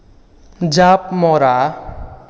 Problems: echo